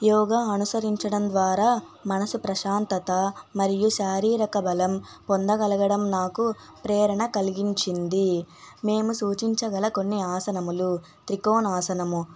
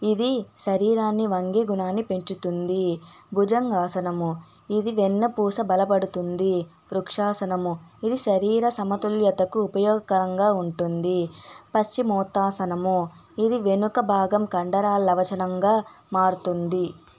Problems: constant background noise, background conversations at intervals